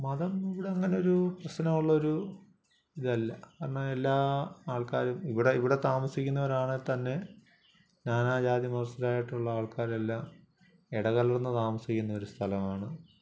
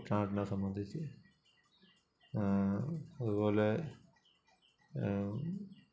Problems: none marked